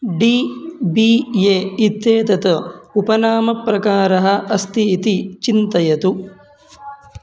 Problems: constant background noise